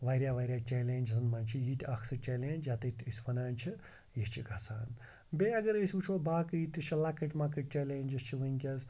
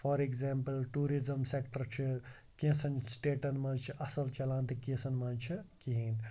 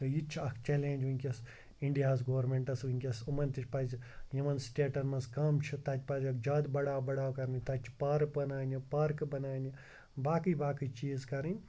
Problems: background sounds at intervals, background conversations at intervals